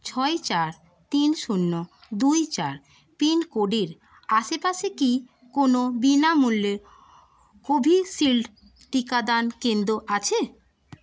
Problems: constant background noise